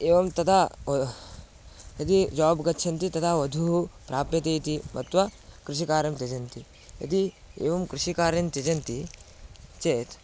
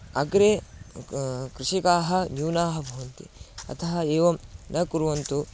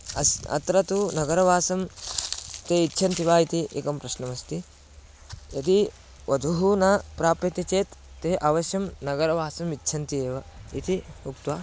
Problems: constant background noise